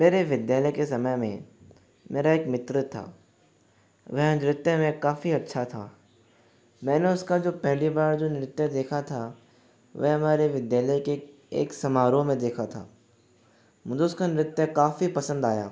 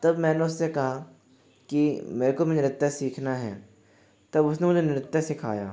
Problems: background sounds at intervals